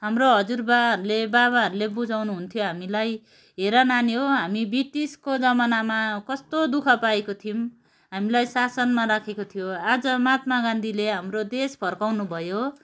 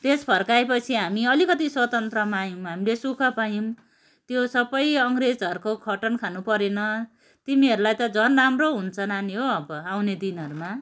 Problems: background sounds at intervals